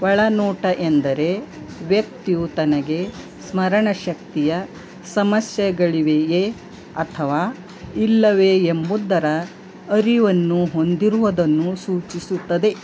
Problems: constant background noise